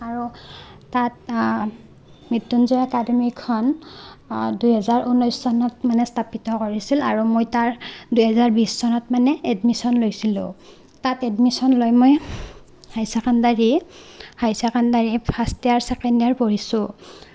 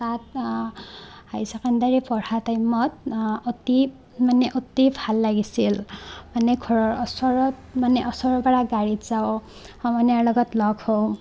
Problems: background sounds at intervals